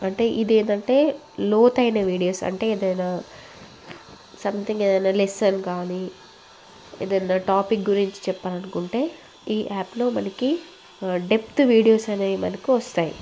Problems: none marked